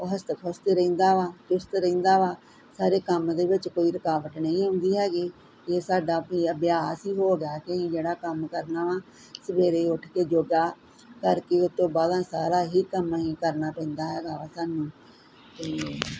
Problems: none marked